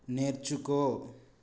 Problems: low volume